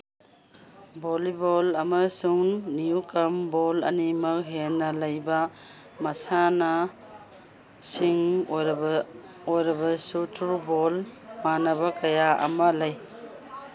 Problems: background sounds at intervals